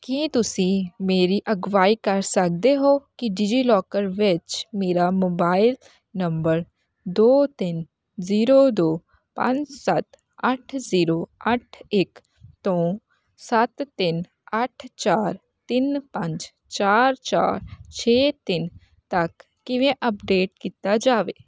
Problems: constant background noise